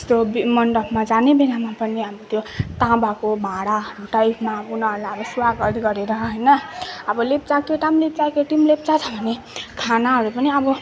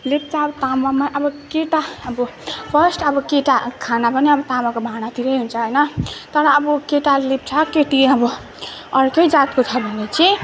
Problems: background sounds at intervals, continuous background conversations